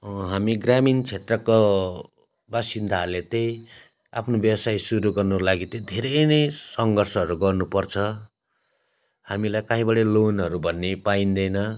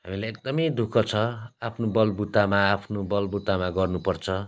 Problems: none marked